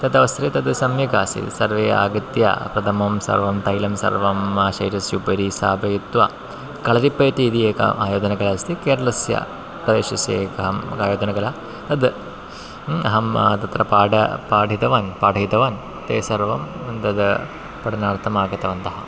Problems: constant background noise